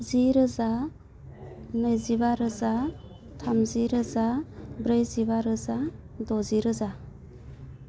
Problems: constant background noise